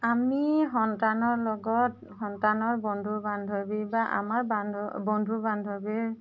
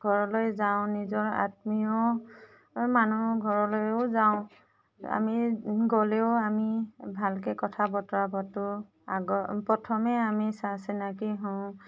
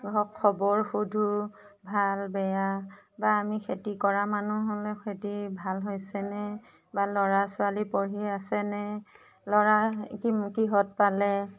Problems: background sounds at intervals